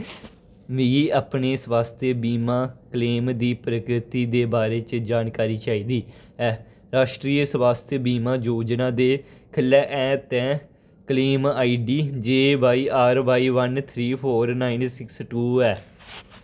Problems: none marked